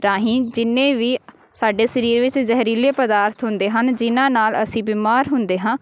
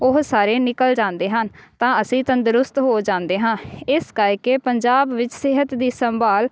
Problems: none marked